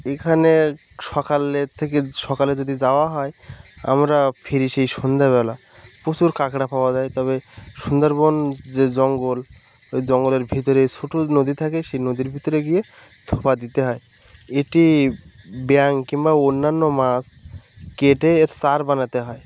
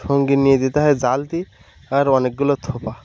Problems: none marked